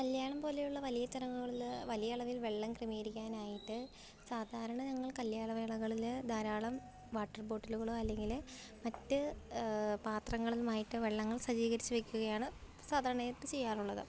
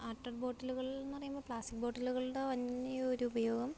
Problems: low volume